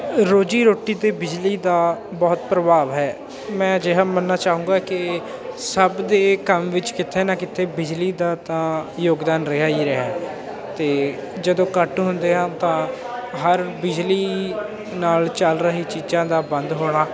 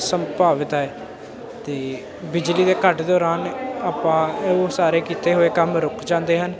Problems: constant background noise